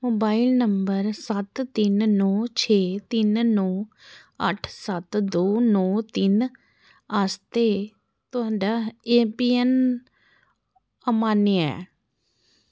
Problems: none marked